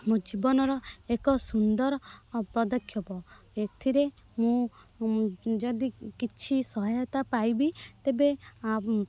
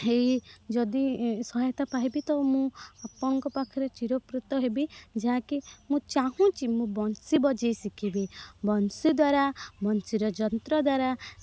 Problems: none marked